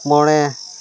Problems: constant background noise